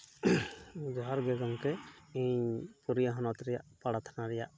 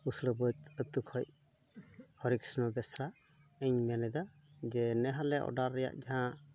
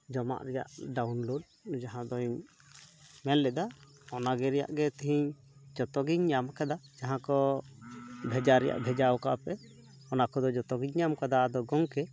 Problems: constant background noise, background conversations at intervals